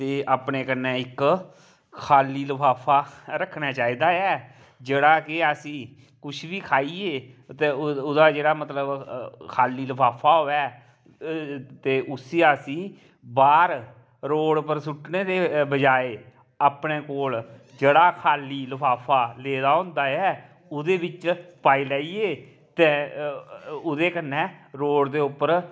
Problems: none marked